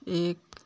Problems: constant background noise